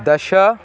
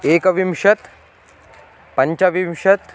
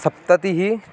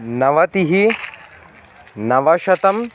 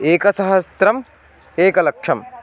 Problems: constant background noise, continuous background conversations